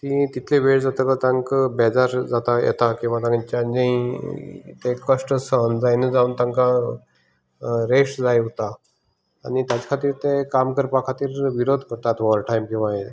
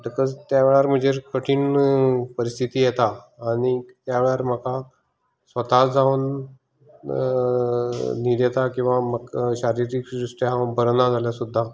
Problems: none marked